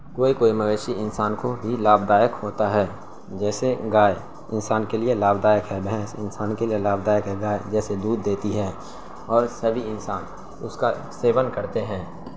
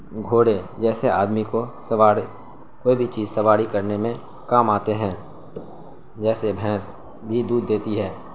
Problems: constant background noise